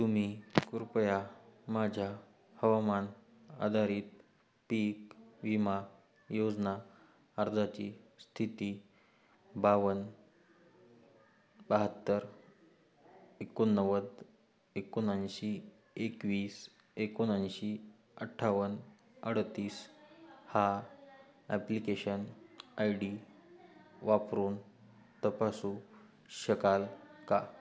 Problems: constant background noise, continuous background conversations